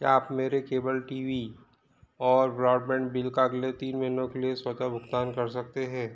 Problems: constant background noise